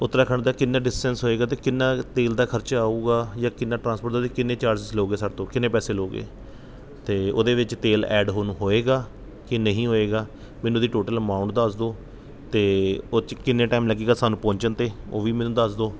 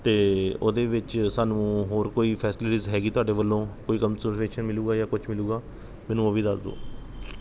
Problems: background sounds at intervals